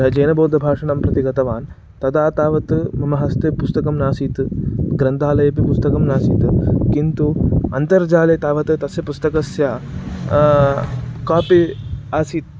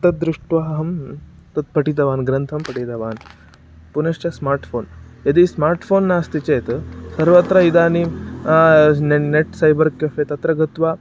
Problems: background sounds at intervals